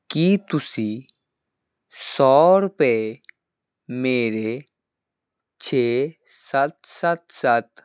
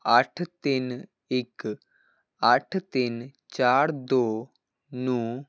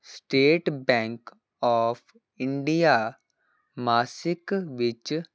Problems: none marked